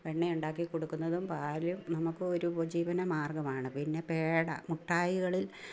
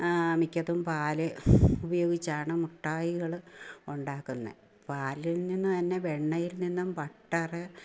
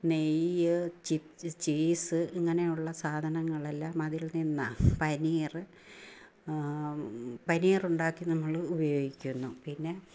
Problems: low volume